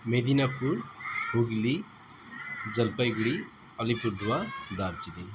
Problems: constant background noise